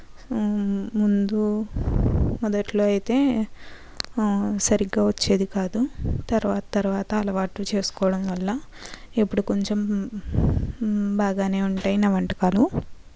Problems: none marked